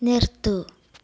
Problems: background sounds at intervals, low volume